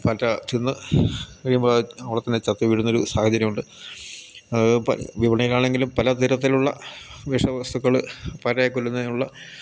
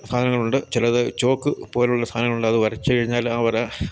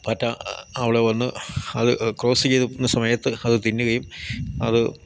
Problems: none marked